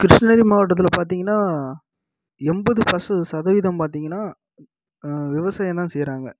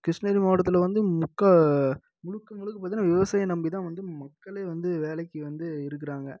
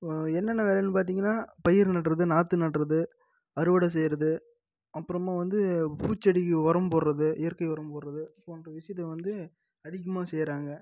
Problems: low volume